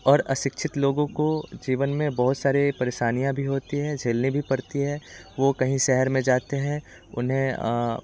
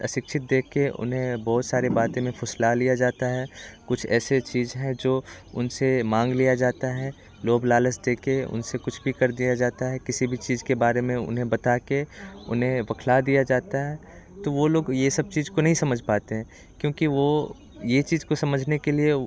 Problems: constant background noise